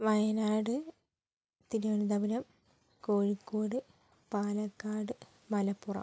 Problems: low volume